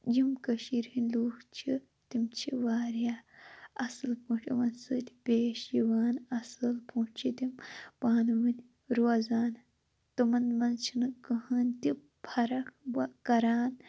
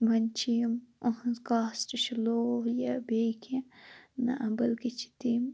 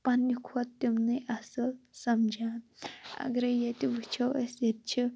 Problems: none marked